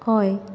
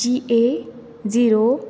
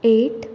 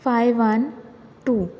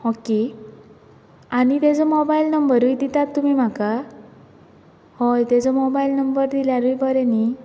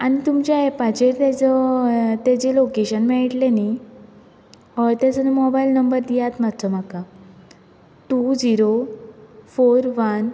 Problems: constant background noise